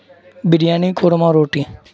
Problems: constant background noise